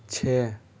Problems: none marked